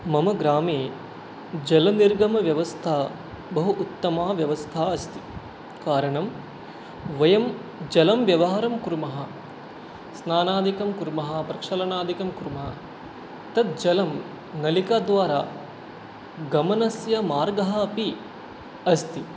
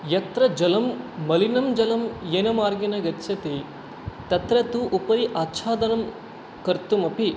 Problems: constant background noise